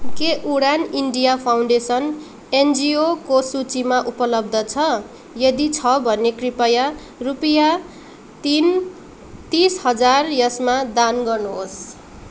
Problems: background sounds at intervals